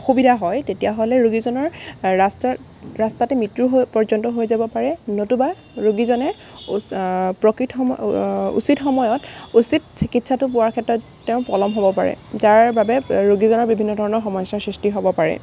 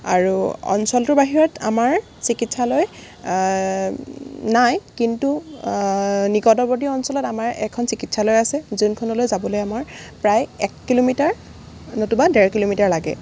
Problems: background sounds at intervals